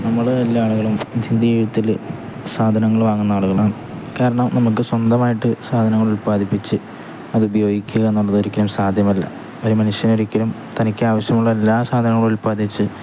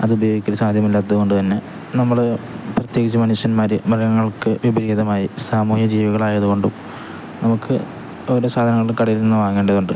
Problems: none marked